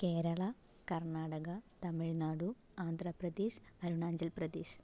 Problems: low volume